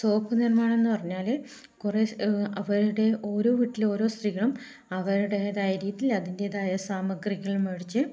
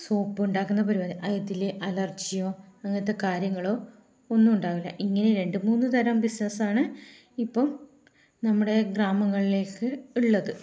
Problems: low volume